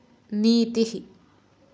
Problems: none marked